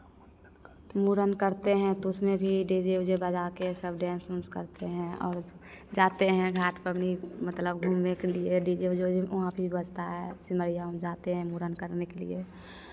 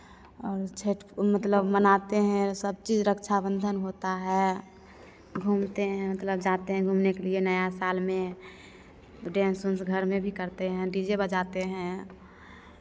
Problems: none marked